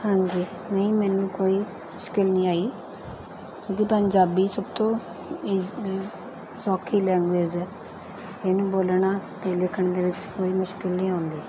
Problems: none marked